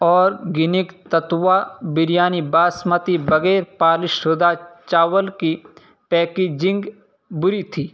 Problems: constant background noise